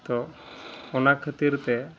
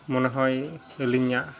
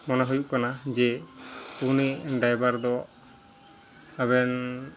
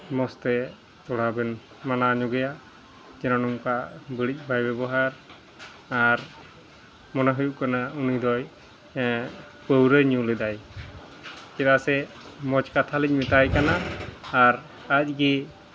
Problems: background sounds at intervals, background conversations at intervals